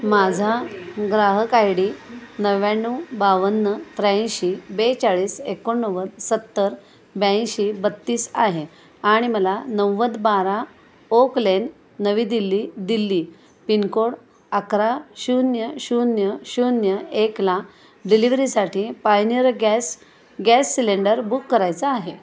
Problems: constant background noise, background conversations at intervals